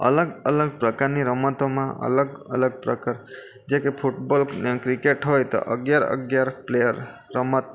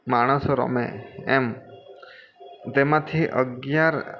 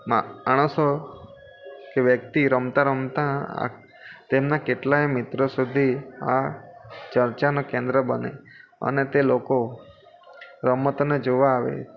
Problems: constant background noise